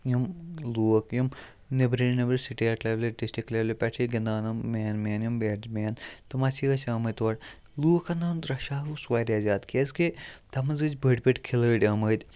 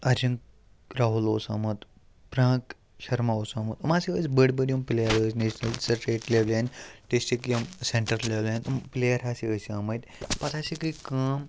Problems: background sounds at intervals